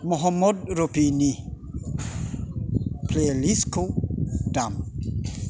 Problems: constant background noise